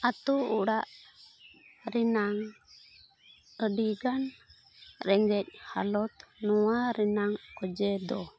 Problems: constant background noise